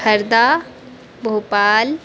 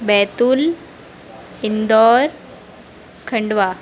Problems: constant background noise